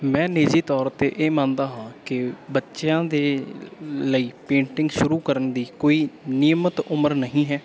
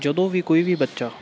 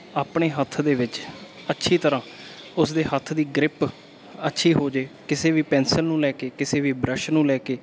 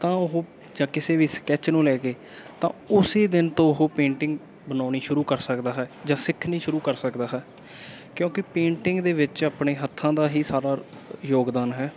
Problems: none marked